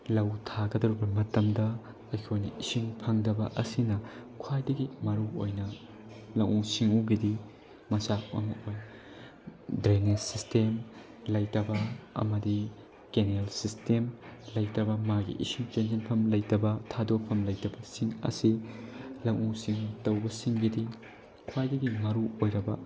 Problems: constant background noise, low volume